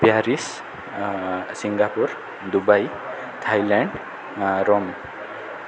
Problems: none marked